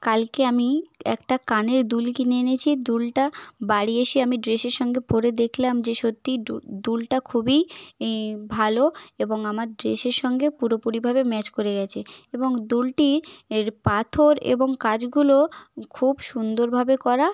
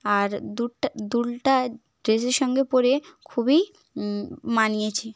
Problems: none marked